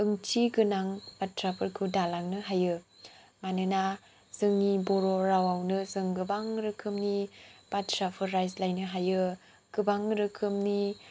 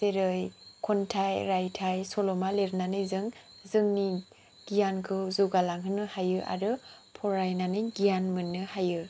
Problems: low volume